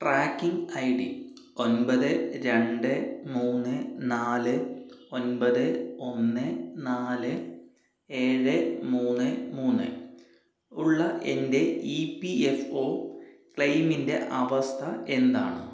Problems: echo, low volume